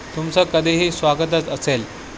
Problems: constant background noise